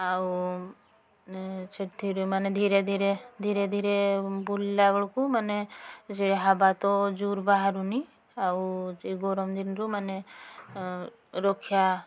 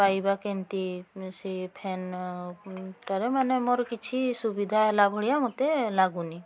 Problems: constant background noise, continuous background conversations